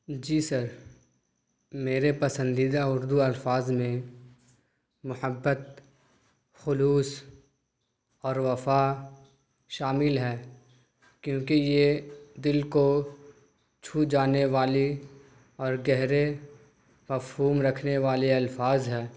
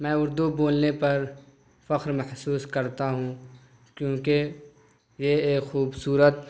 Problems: none marked